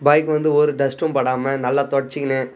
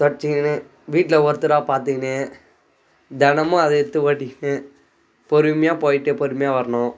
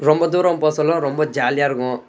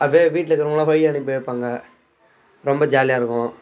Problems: background sounds at intervals